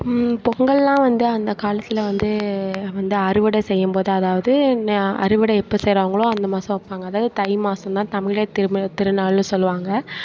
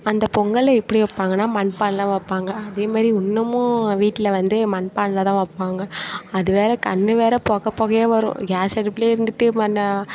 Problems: continuous background conversations